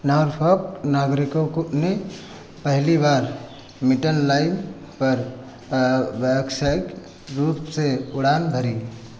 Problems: none marked